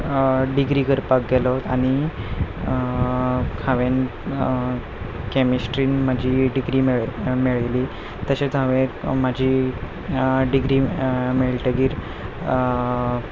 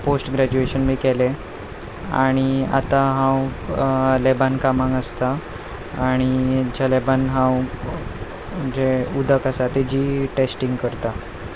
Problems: constant background noise